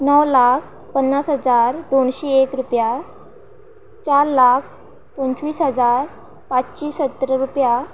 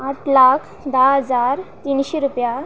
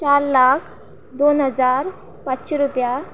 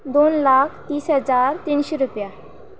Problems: none marked